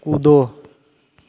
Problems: none marked